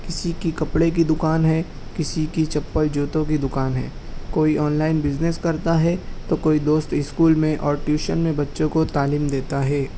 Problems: none marked